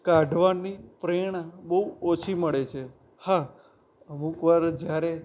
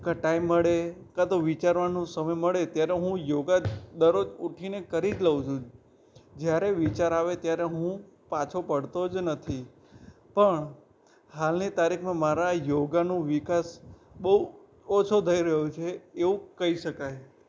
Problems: background sounds at intervals